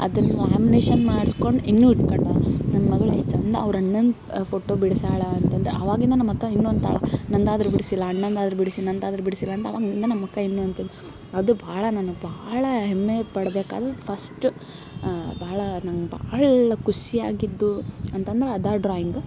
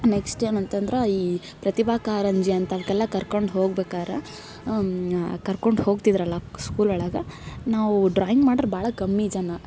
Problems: background sounds at intervals